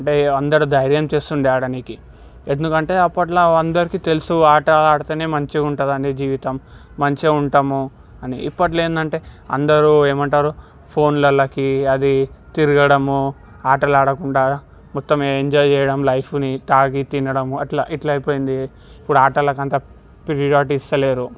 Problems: background sounds at intervals